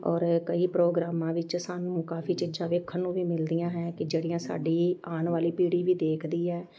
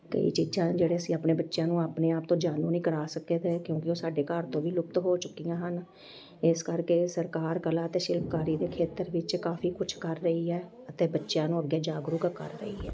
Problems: background sounds at intervals, continuous background conversations